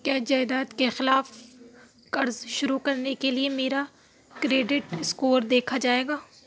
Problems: none marked